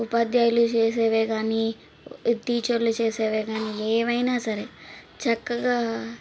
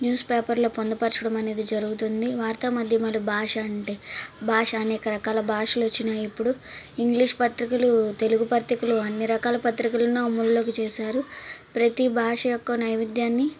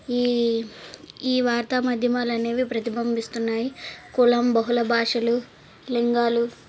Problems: background sounds at intervals